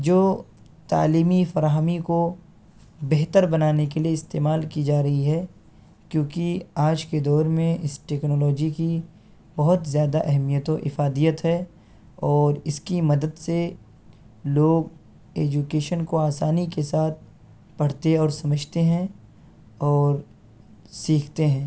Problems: constant background noise